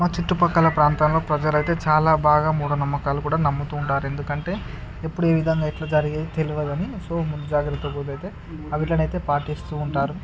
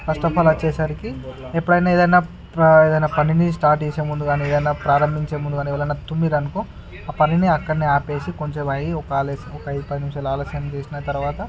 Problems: none marked